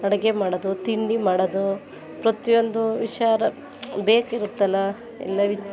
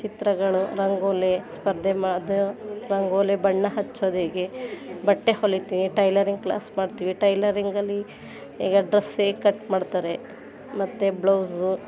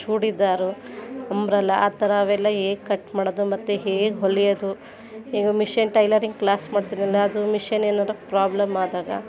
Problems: background sounds at intervals